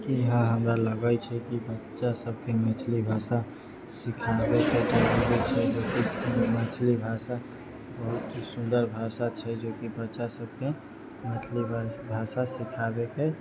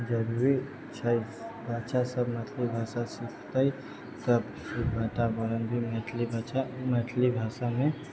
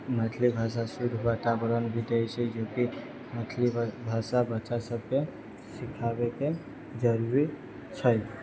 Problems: low volume